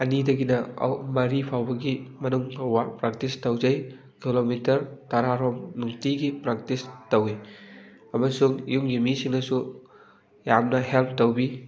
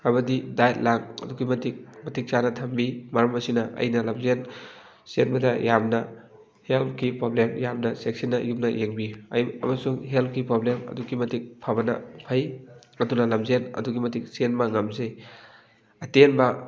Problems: background conversations at intervals